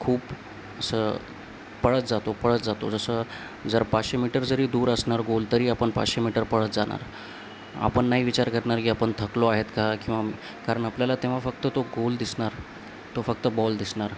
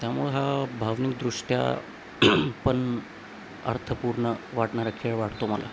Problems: constant background noise